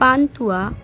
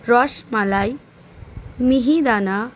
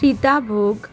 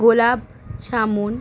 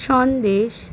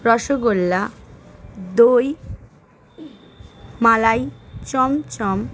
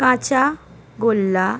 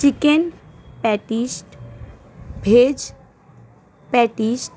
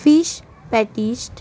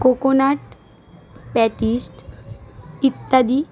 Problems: constant background noise, continuous background conversations